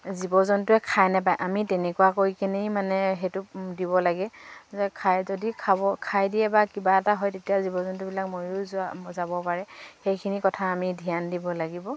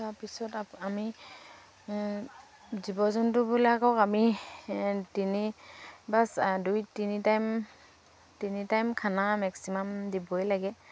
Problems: none marked